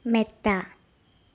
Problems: background sounds at intervals, low volume